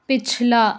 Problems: none marked